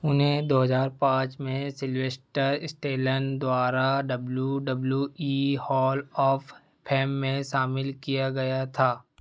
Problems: none marked